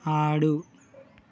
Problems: constant background noise